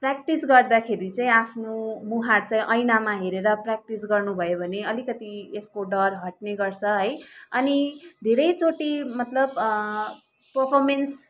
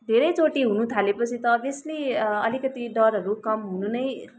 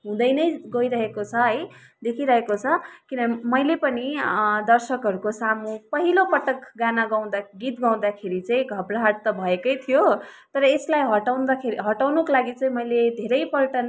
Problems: background sounds at intervals